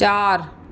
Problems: constant background noise, echo